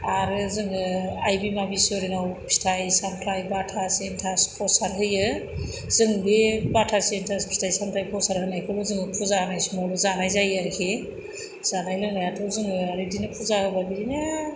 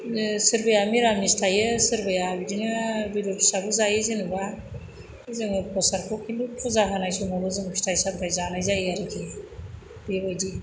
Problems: constant background noise